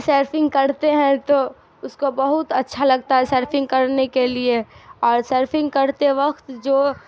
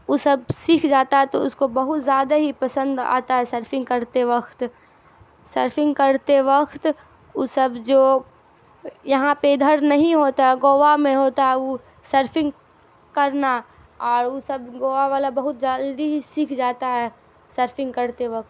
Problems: constant background noise